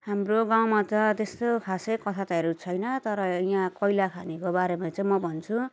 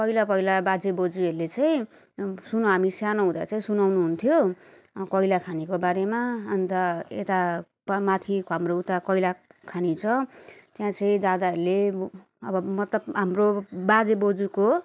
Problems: none marked